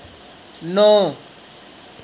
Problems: constant background noise